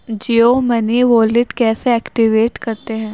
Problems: background sounds at intervals